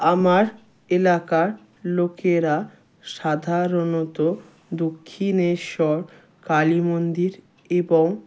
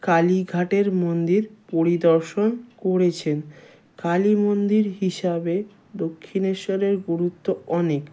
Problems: background sounds at intervals